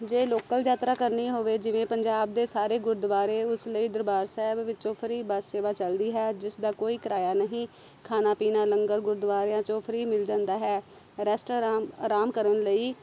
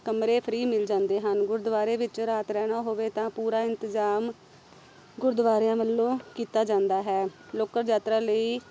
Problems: none marked